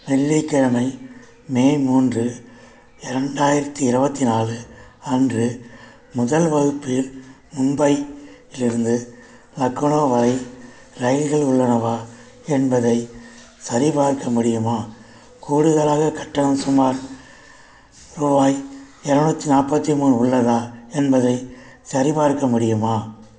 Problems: none marked